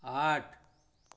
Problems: constant background noise